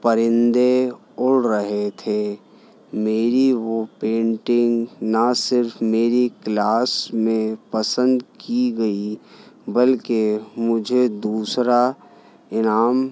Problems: none marked